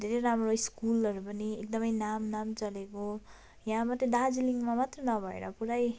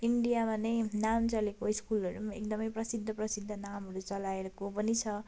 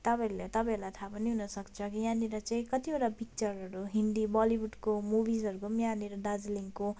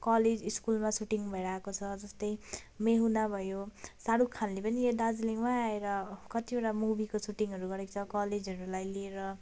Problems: constant background noise